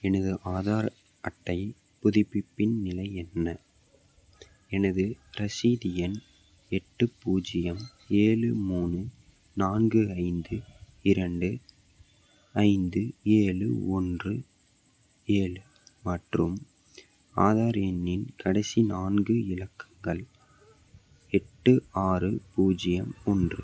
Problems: none marked